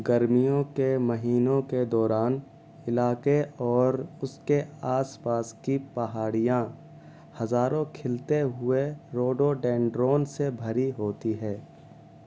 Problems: constant background noise